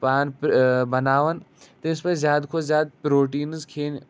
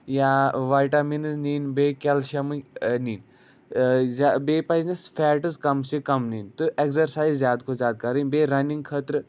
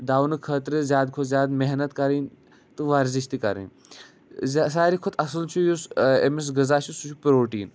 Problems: none marked